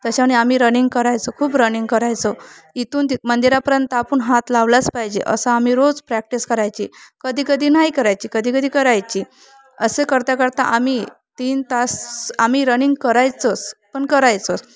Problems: constant background noise, background conversations at intervals